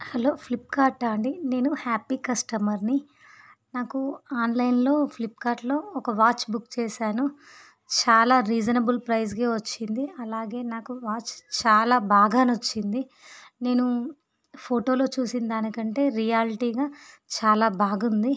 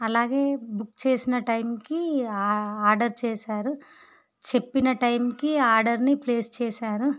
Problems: background sounds at intervals